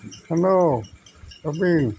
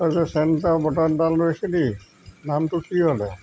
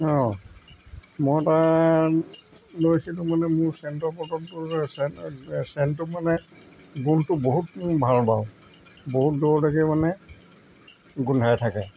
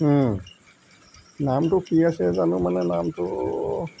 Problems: constant background noise